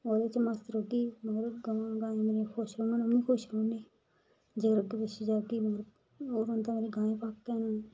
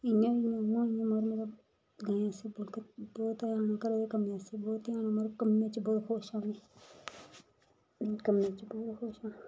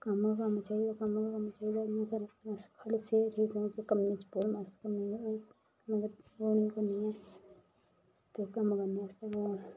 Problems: constant background noise, background conversations at intervals, low volume